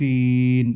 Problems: constant background noise, low volume